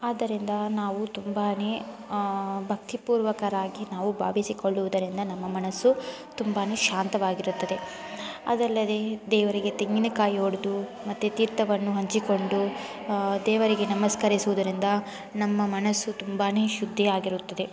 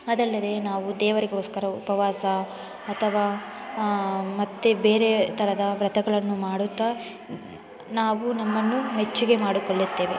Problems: constant background noise